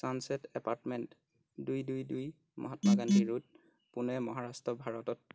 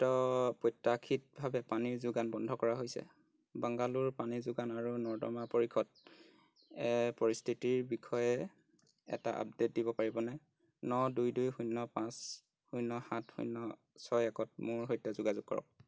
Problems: constant background noise